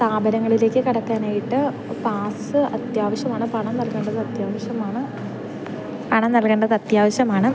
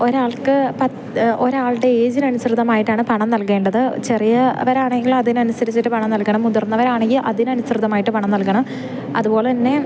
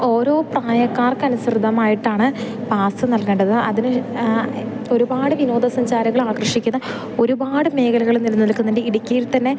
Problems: background sounds at intervals